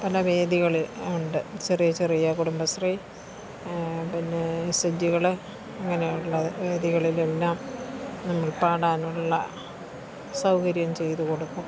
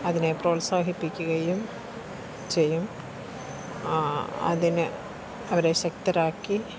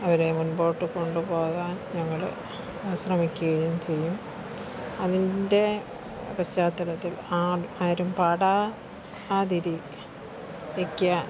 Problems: background sounds at intervals, low volume